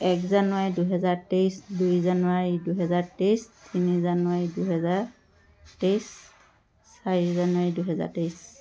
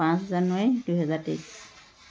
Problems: constant background noise